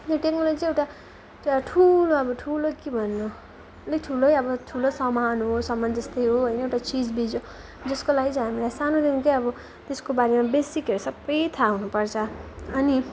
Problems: none marked